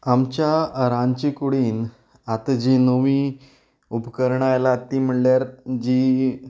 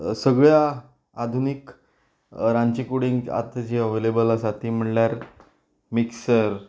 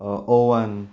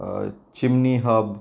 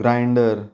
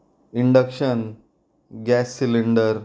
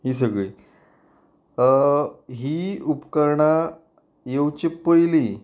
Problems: background sounds at intervals